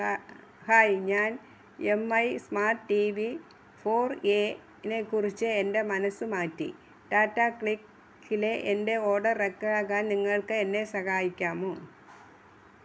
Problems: none marked